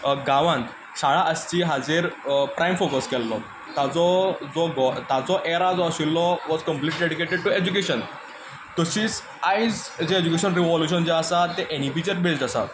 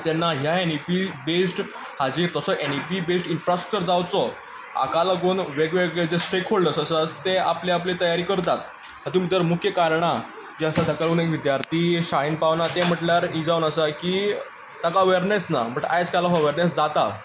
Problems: constant background noise